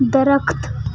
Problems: background sounds at intervals